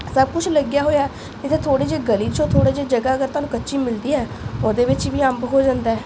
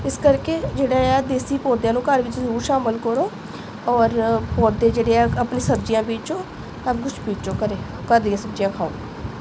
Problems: constant background noise